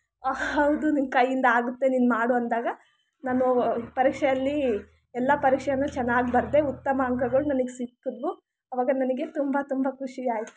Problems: background sounds at intervals